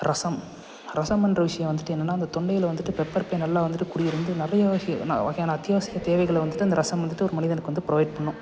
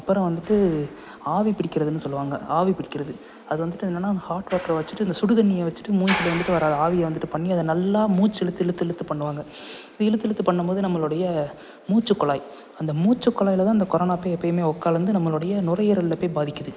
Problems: constant background noise